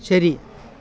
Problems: none marked